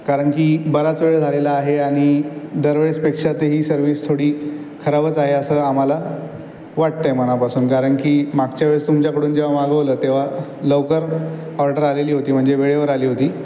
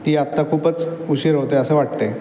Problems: background sounds at intervals